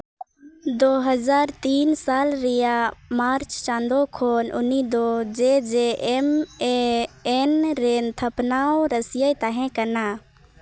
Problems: background sounds at intervals